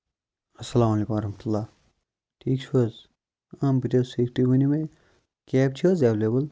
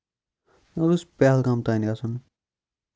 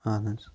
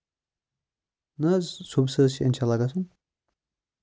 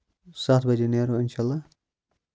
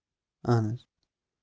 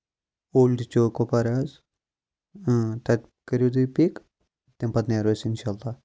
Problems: none marked